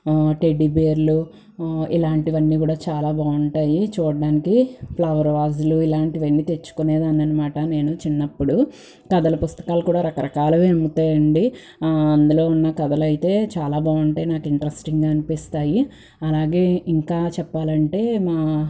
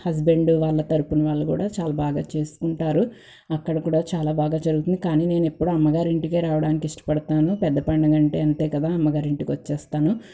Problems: none marked